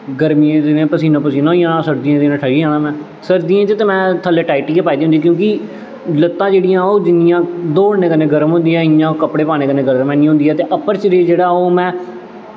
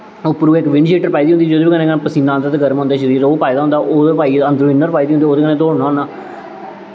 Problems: constant background noise, echo